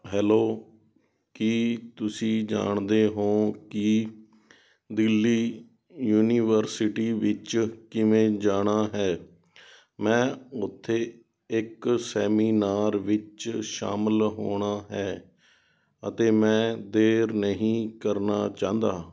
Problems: background sounds at intervals